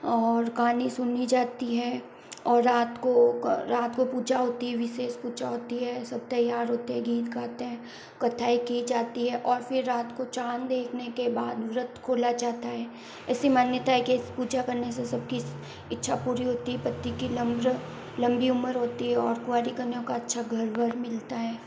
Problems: constant background noise